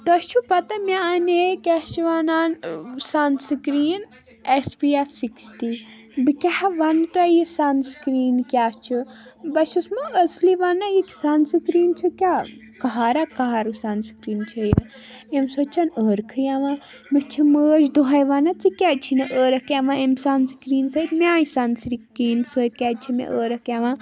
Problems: background sounds at intervals